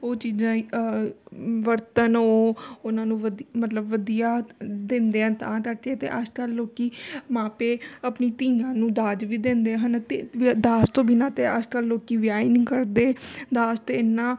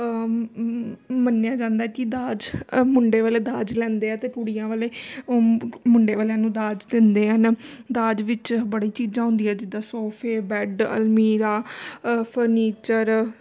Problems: constant background noise